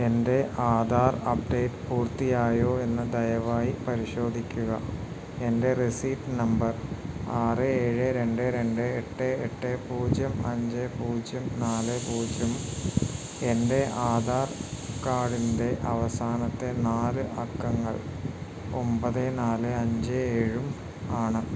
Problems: none marked